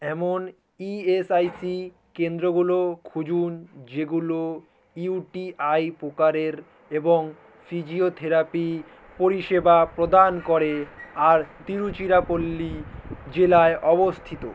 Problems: constant background noise